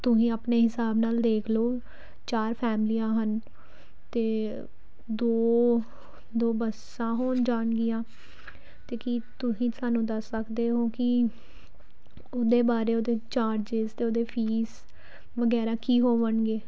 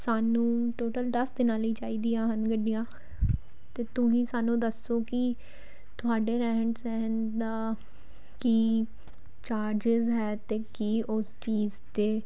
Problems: none marked